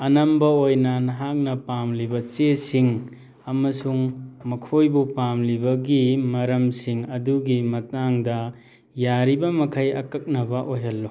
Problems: background sounds at intervals